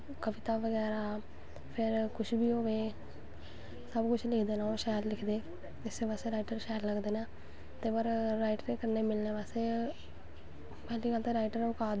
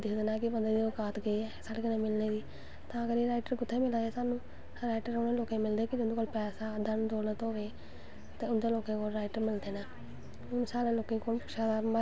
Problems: constant background noise